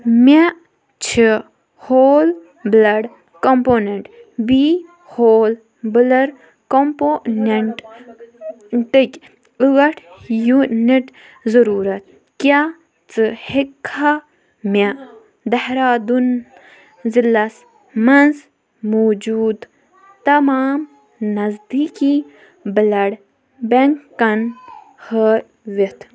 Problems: constant background noise